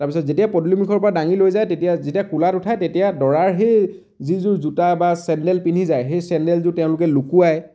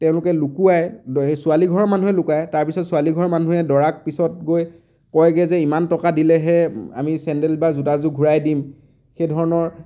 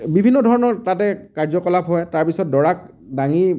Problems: none marked